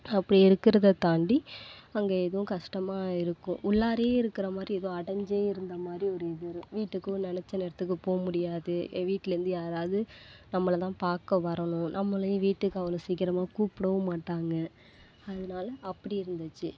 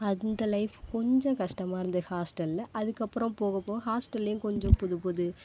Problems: constant background noise